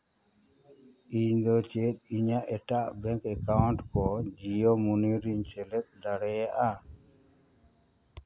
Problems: background sounds at intervals